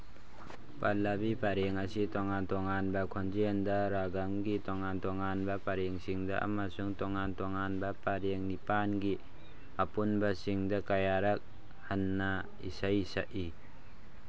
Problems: constant background noise